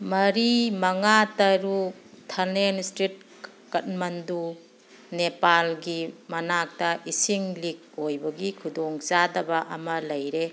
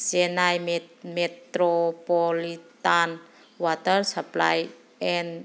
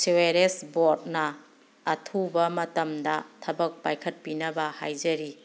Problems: background sounds at intervals